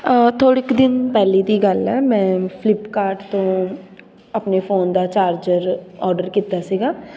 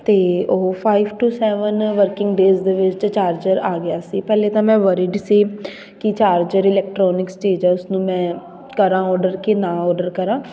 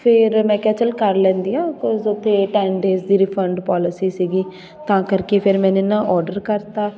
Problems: background sounds at intervals, continuous background conversations